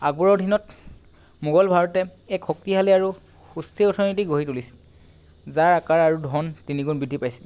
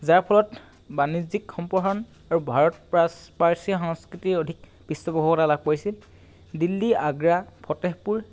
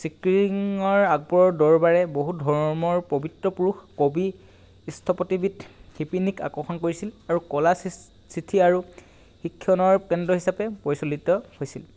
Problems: background sounds at intervals